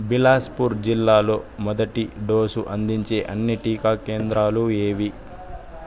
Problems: constant background noise, background conversations at intervals